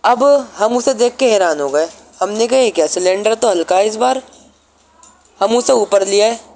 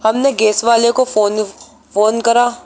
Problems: constant background noise